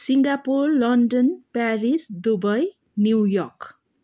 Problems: none marked